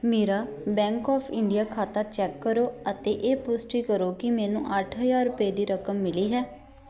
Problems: background sounds at intervals, continuous background conversations